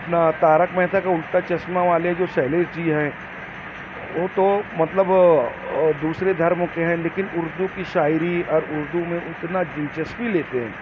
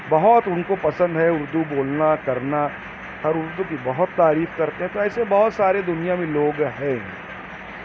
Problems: constant background noise